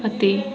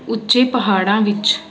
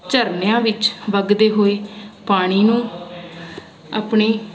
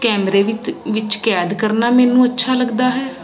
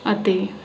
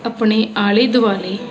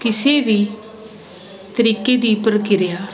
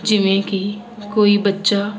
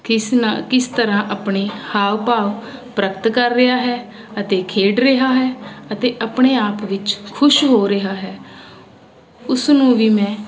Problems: constant background noise